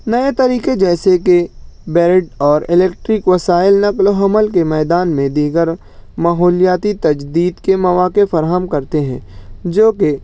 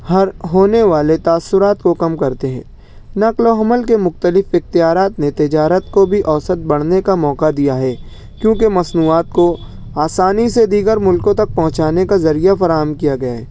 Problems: none marked